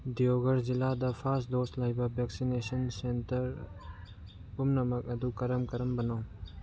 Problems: background sounds at intervals